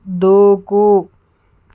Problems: none marked